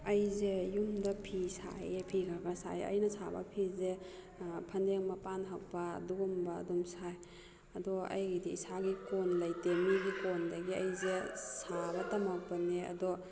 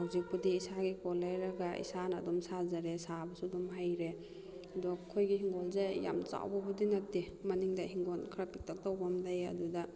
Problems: background conversations at intervals